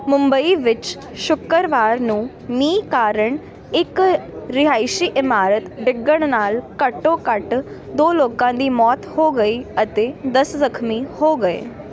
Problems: continuous background conversations